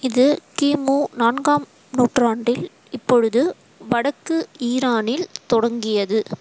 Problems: constant background noise